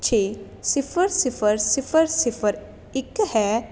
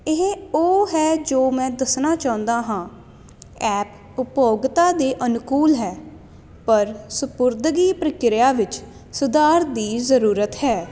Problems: constant background noise